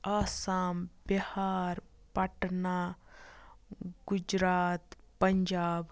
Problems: none marked